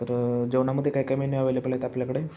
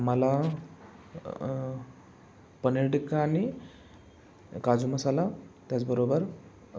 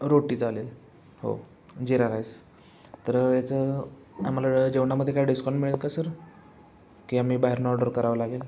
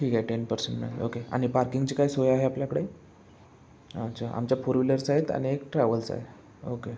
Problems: background sounds at intervals, background conversations at intervals